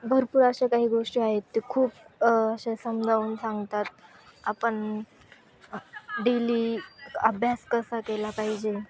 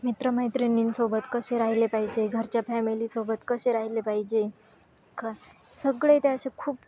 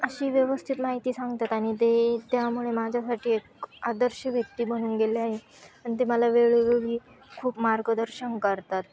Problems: constant background noise, continuous background conversations